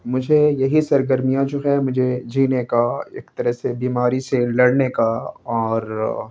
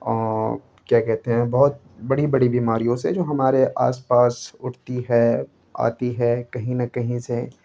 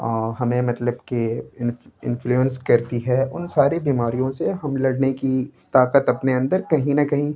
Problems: constant background noise